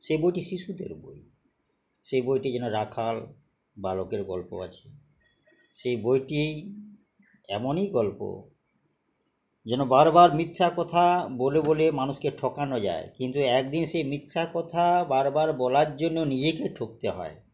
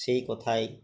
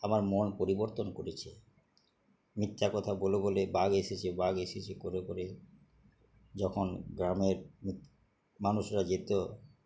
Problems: background sounds at intervals